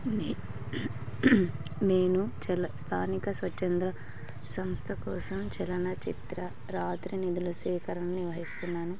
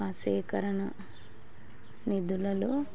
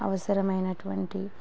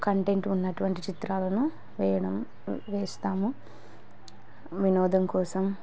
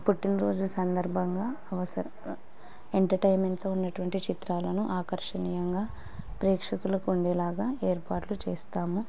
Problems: background sounds at intervals, background conversations at intervals